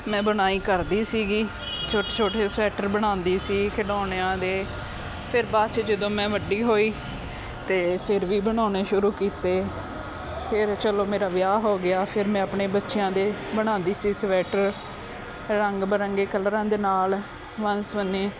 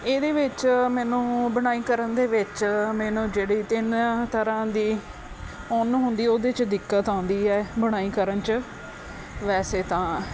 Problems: constant background noise